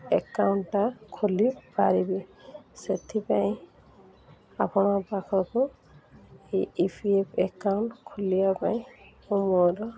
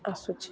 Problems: constant background noise, continuous background conversations